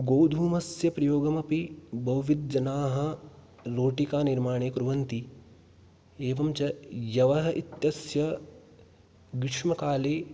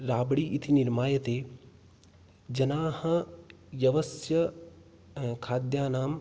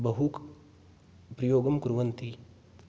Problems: background sounds at intervals